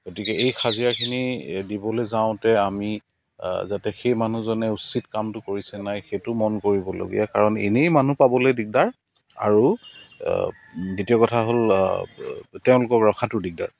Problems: constant background noise, continuous background conversations